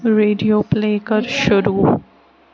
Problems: constant background noise